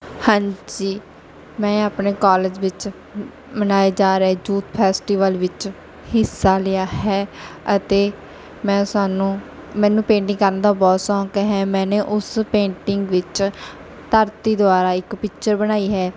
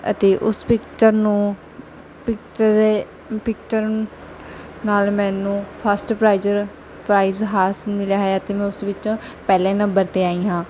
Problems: none marked